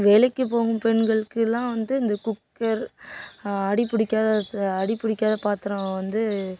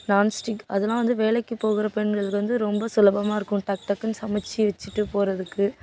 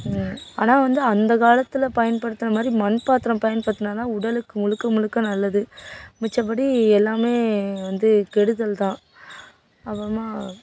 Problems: background sounds at intervals